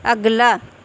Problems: none marked